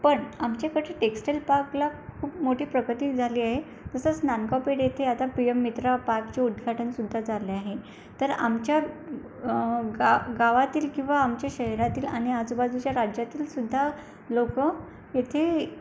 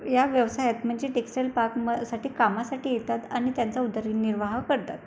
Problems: none marked